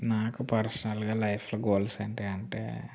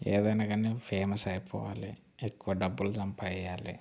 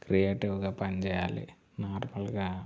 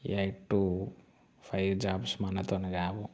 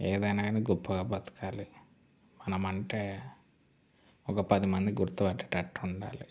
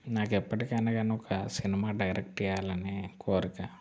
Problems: none marked